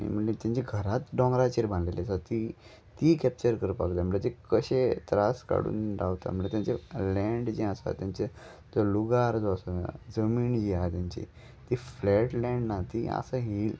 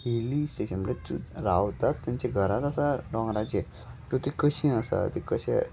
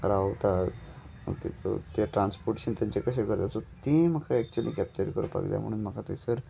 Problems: none marked